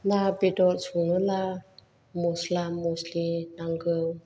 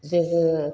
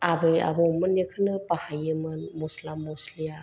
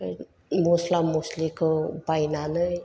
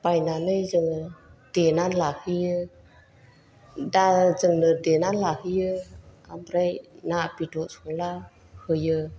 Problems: low volume